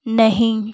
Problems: background sounds at intervals